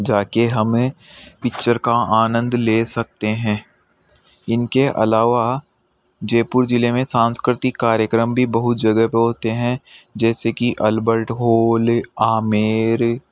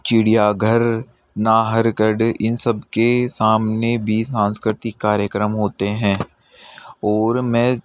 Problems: background sounds at intervals